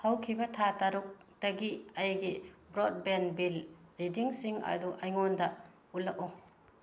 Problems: none marked